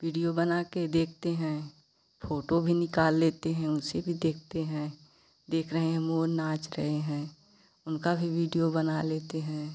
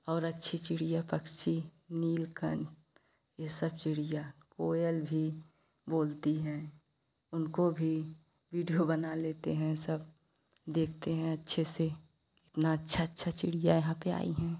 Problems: constant background noise